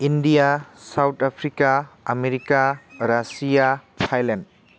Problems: constant background noise